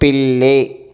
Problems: none marked